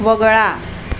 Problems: none marked